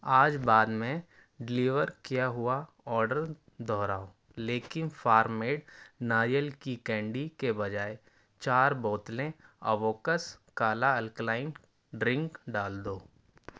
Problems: constant background noise